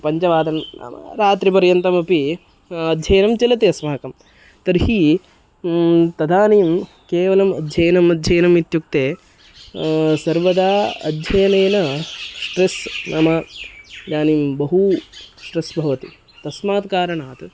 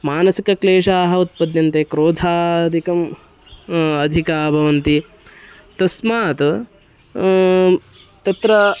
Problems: constant background noise